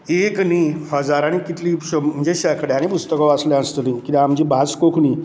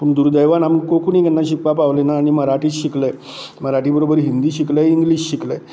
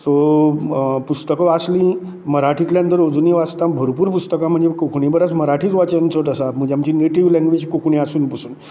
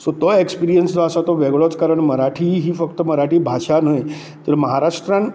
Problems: none marked